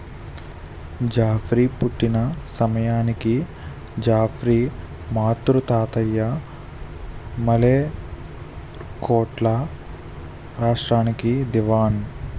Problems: constant background noise